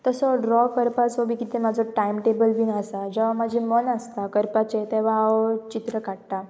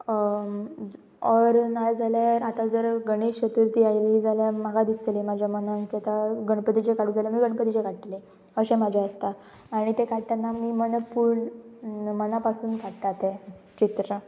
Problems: constant background noise